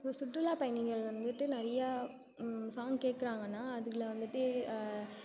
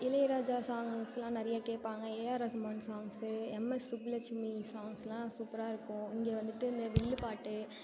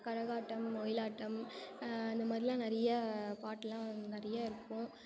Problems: continuous background conversations